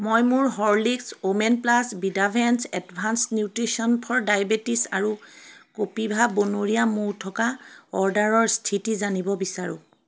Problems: constant background noise, background conversations at intervals